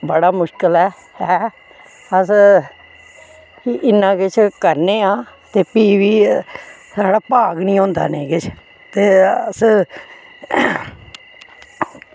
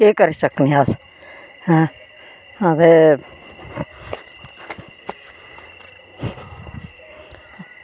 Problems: constant background noise